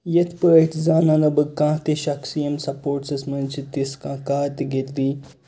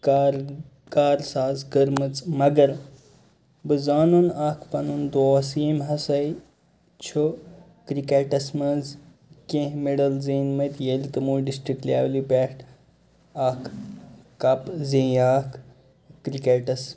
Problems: constant background noise, background conversations at intervals